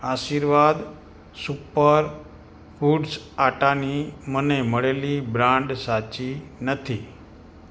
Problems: background sounds at intervals